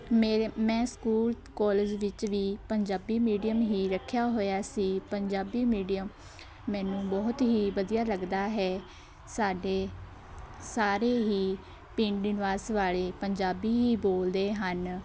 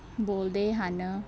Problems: none marked